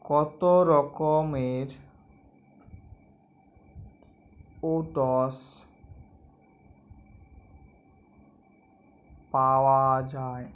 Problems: none marked